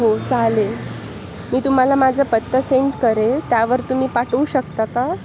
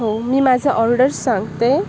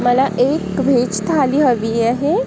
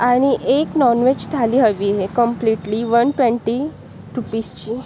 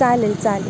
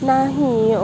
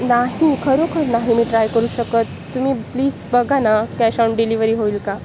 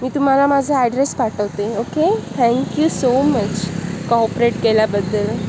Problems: constant background noise